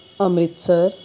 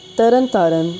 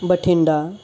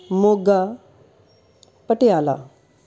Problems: constant background noise